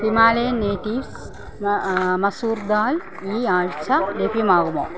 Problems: continuous background conversations